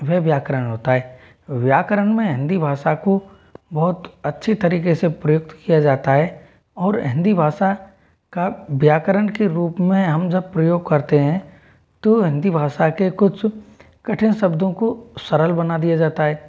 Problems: none marked